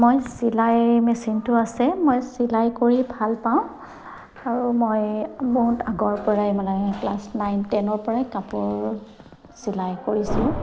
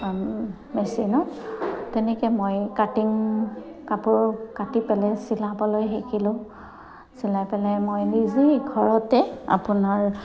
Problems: constant background noise